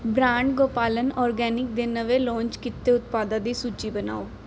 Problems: background sounds at intervals